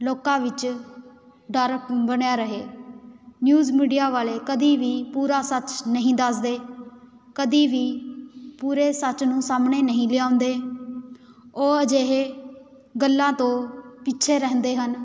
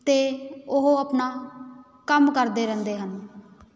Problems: background sounds at intervals